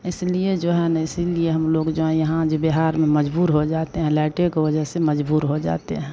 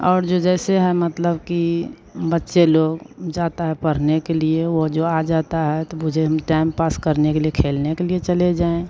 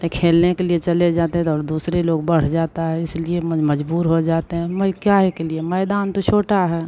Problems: constant background noise